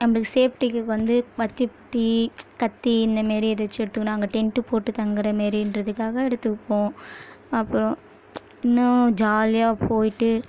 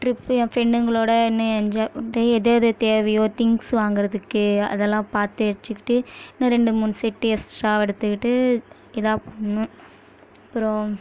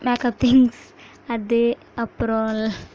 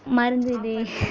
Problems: background sounds at intervals